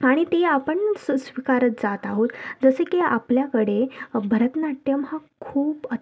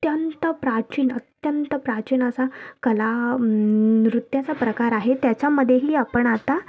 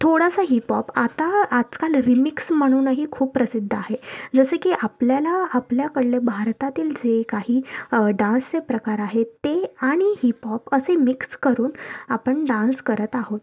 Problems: none marked